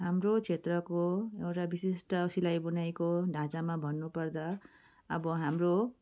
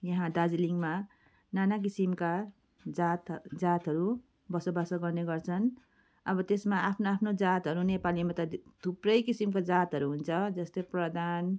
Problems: none marked